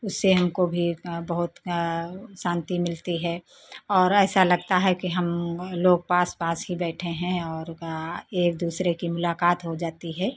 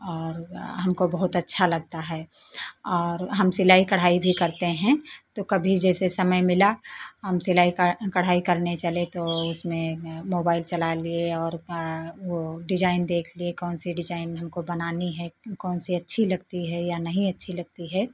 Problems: constant background noise